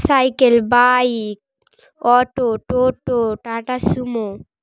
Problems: background sounds at intervals